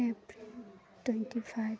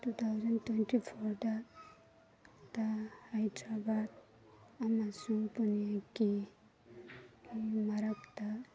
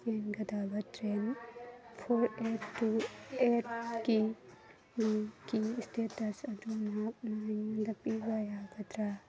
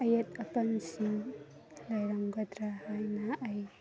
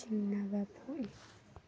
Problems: constant background noise